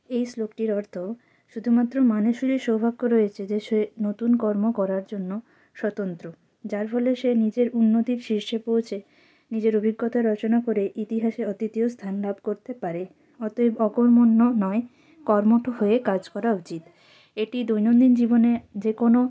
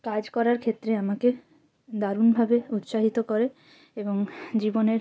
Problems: constant background noise, background conversations at intervals